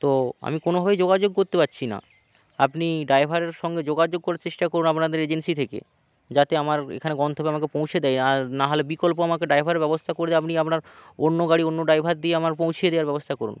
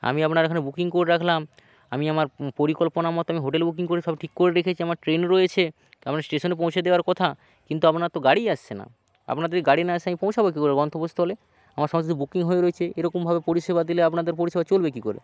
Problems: none marked